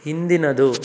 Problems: none marked